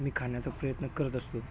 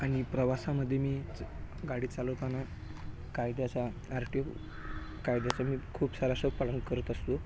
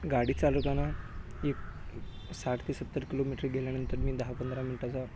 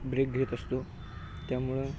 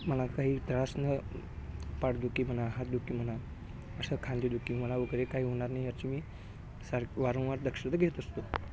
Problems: none marked